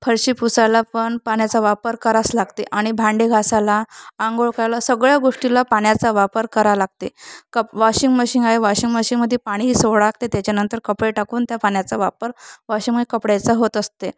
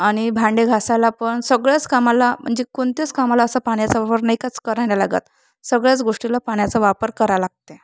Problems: constant background noise